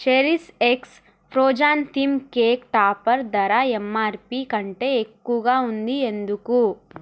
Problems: background sounds at intervals